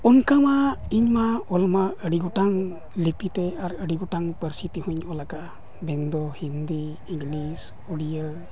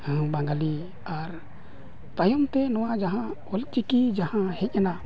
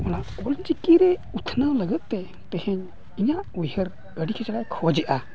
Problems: none marked